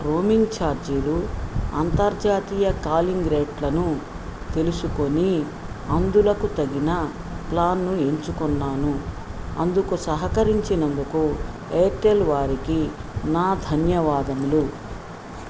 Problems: constant background noise